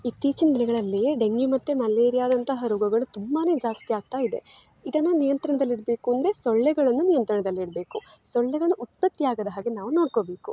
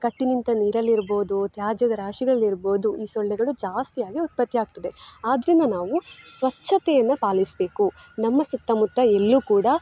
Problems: background sounds at intervals